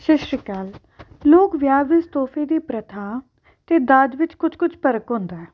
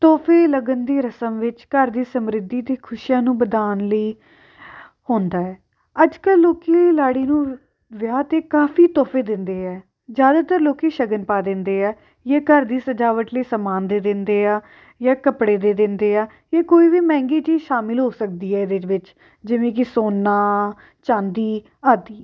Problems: background sounds at intervals